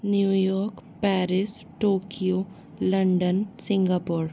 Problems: constant background noise